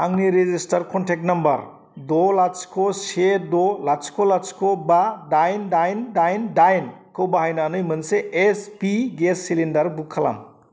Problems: constant background noise